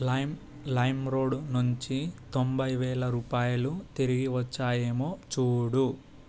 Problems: constant background noise